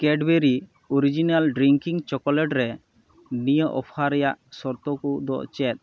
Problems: none marked